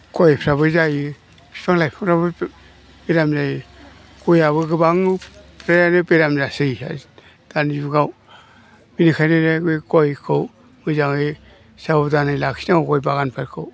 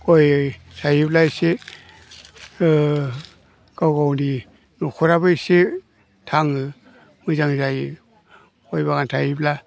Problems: low volume